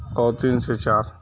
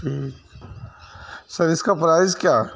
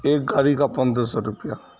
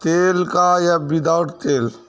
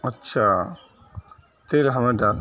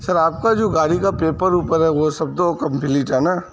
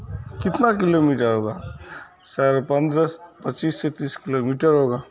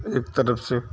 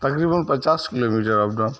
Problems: constant background noise, low volume